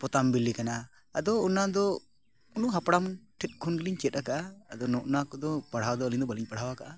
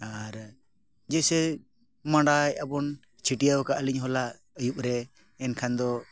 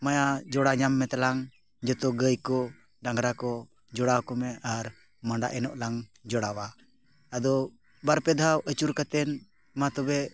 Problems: background sounds at intervals